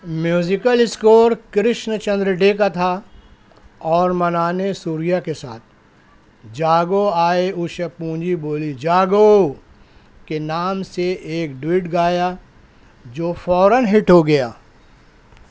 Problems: none marked